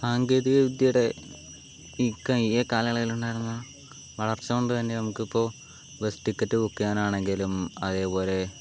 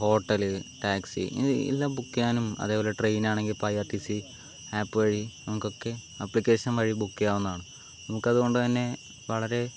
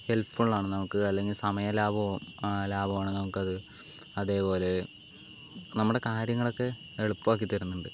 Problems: constant background noise